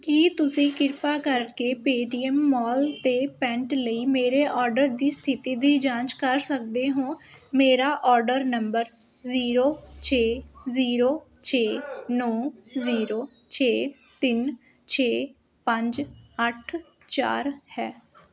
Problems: constant background noise